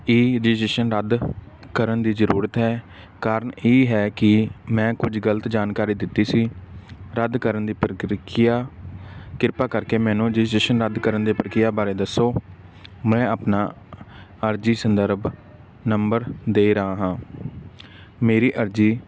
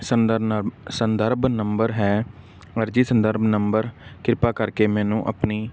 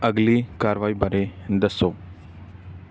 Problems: background sounds at intervals